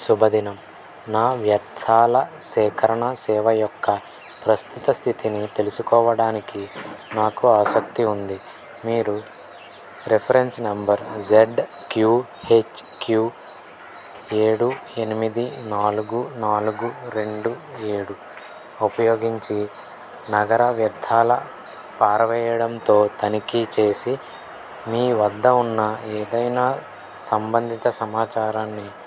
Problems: constant background noise